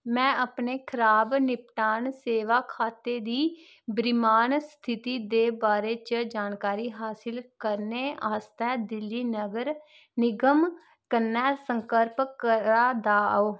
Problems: constant background noise